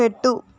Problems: none marked